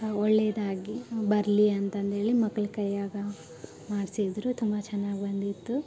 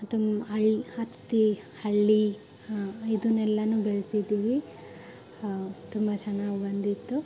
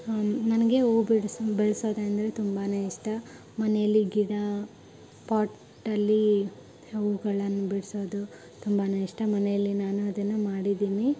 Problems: background sounds at intervals, background conversations at intervals